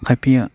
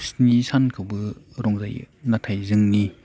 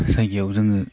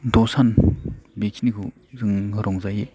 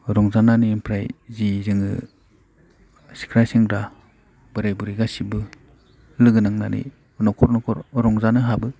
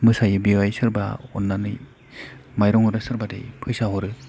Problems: low volume